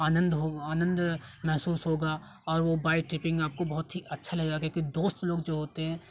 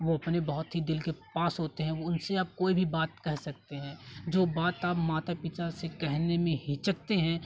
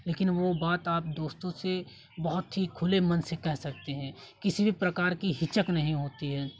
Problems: constant background noise, continuous background conversations